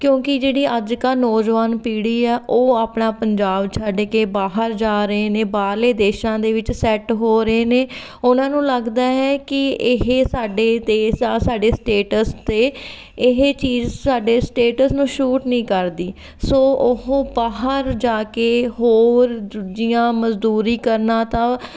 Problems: background sounds at intervals